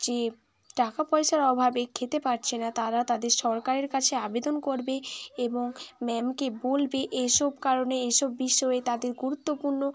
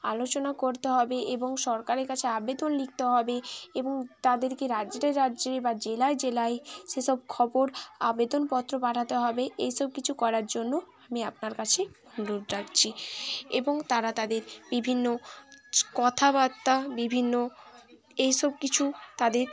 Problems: continuous background conversations